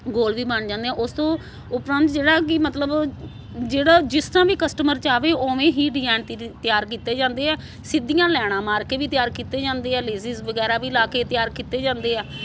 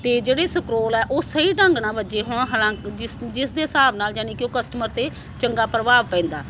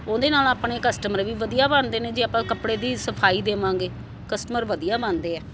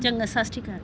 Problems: constant background noise